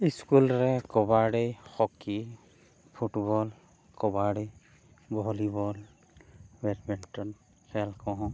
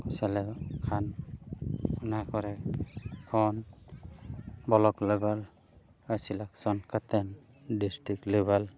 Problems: background sounds at intervals, background conversations at intervals